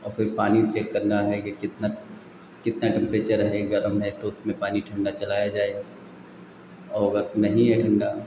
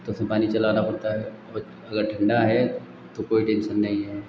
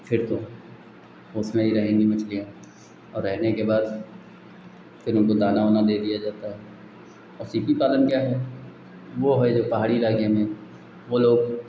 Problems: constant background noise